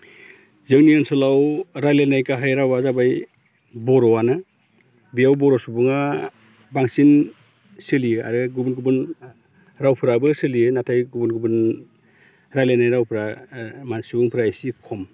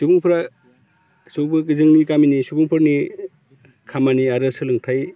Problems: constant background noise